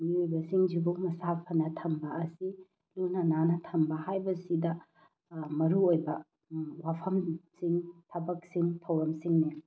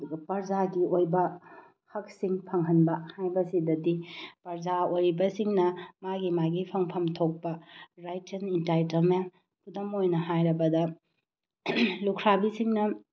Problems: none marked